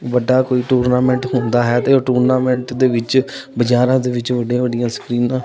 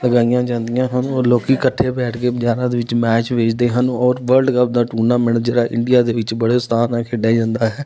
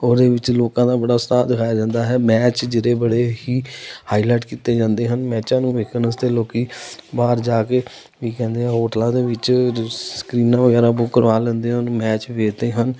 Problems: continuous background conversations